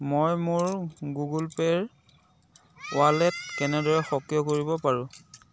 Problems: background conversations at intervals